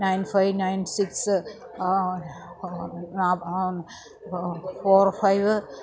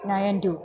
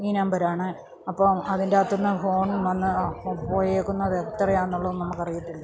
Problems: background sounds at intervals, low volume